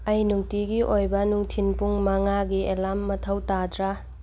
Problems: none marked